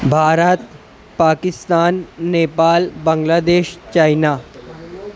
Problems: constant background noise, background conversations at intervals